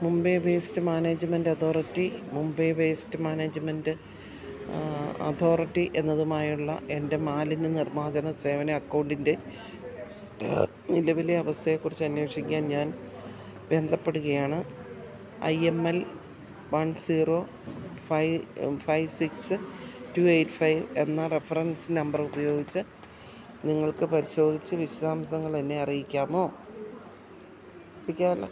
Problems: constant background noise, low volume